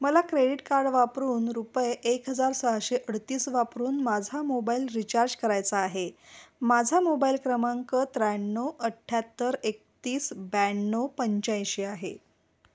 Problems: none marked